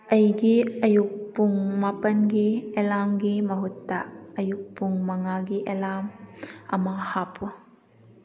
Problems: background sounds at intervals